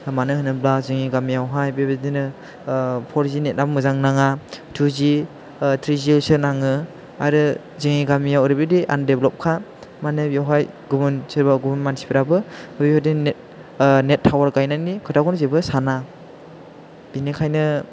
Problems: constant background noise